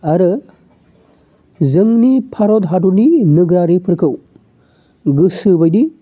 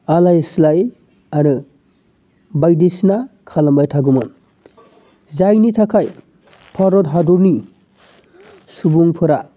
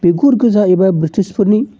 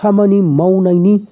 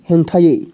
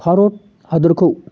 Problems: none marked